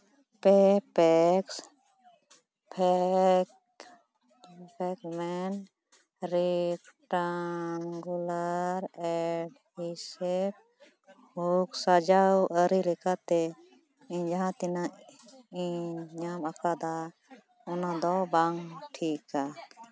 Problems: background conversations at intervals